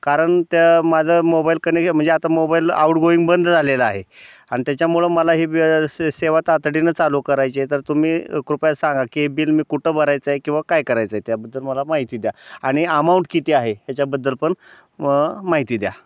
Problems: none marked